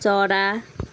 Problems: none marked